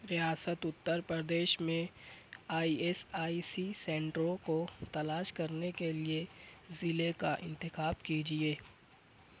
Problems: none marked